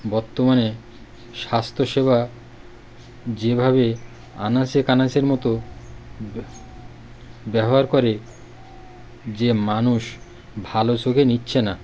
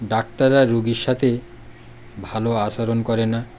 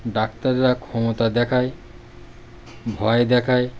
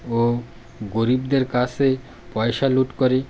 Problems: none marked